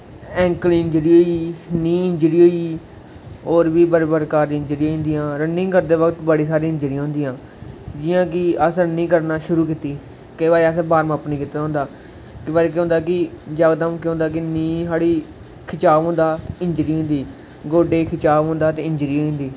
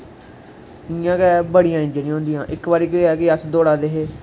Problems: constant background noise